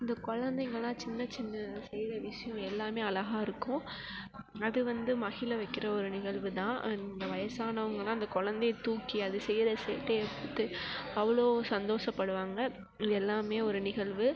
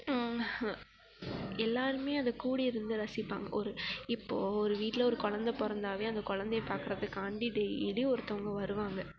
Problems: constant background noise